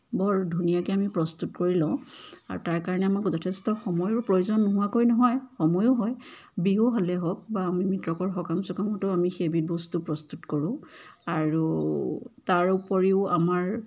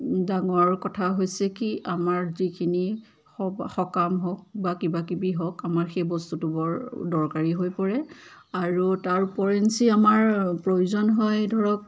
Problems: constant background noise, background conversations at intervals